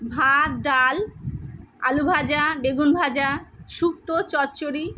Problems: none marked